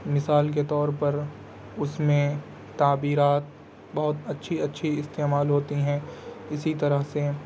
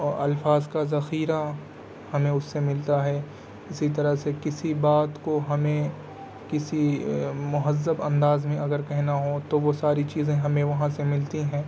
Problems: constant background noise